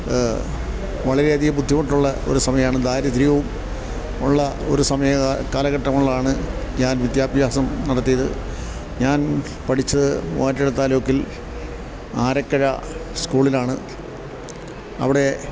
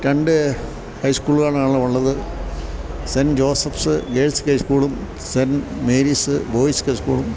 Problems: background sounds at intervals